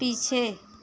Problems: low volume